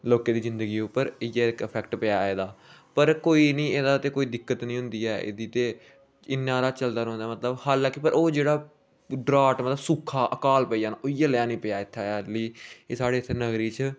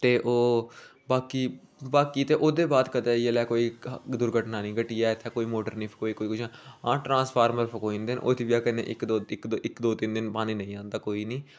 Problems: none marked